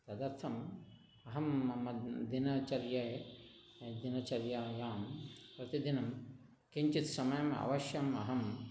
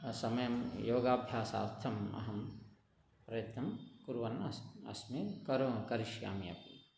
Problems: none marked